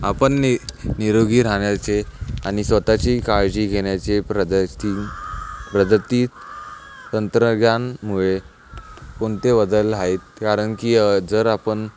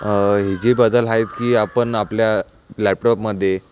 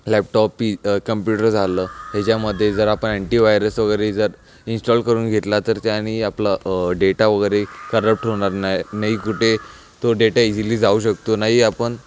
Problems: none marked